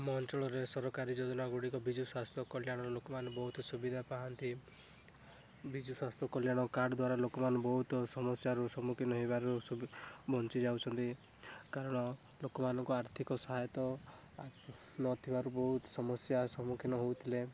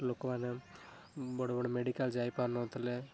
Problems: background sounds at intervals